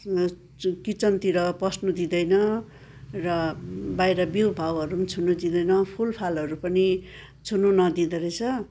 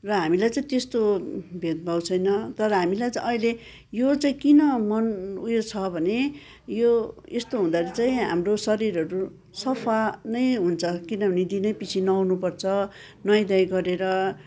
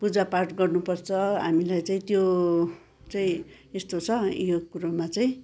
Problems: continuous background conversations